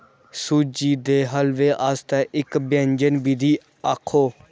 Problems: background sounds at intervals